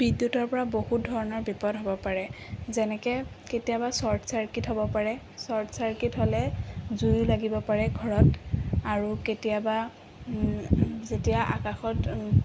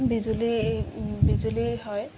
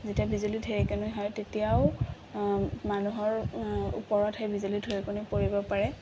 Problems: background sounds at intervals